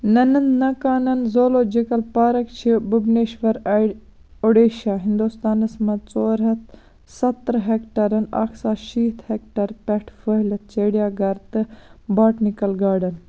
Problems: none marked